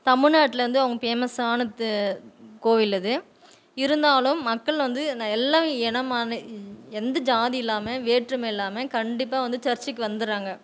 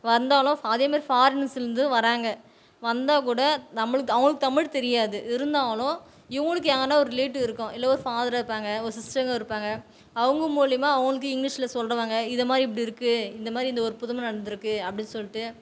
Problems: none marked